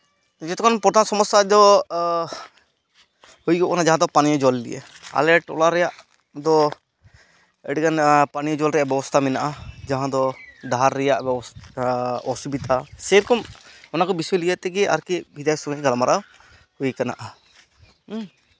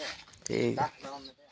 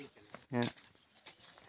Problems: constant background noise, background conversations at intervals